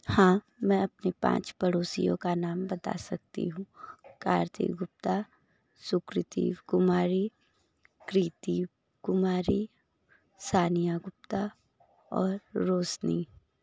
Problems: low volume